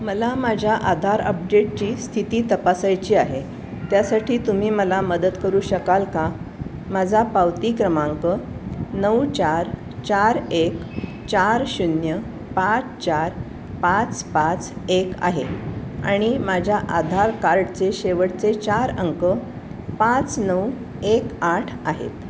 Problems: none marked